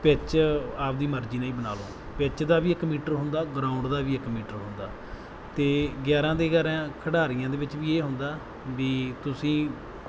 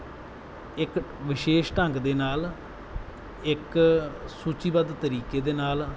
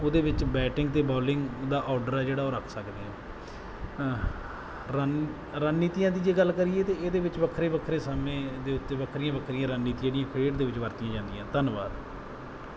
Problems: background sounds at intervals